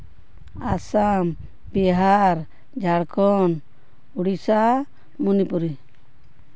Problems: constant background noise